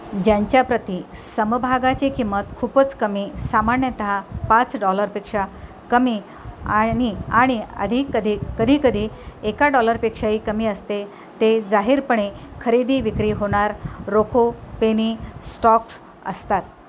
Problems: constant background noise